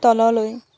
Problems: constant background noise